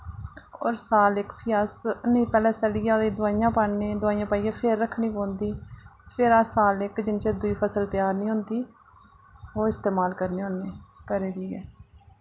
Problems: low volume